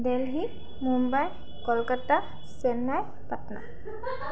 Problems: background sounds at intervals, background conversations at intervals